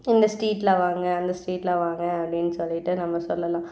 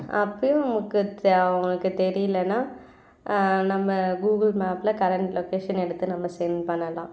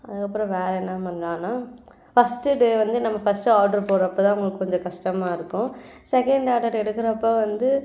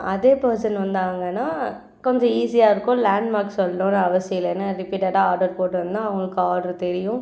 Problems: none marked